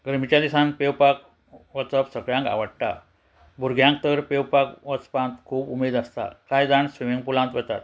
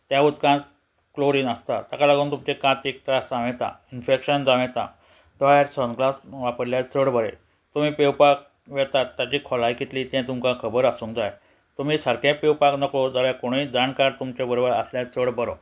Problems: none marked